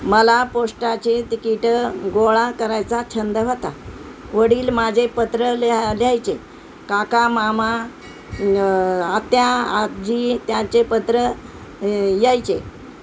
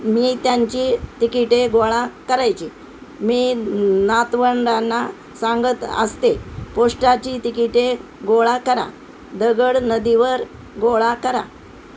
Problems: constant background noise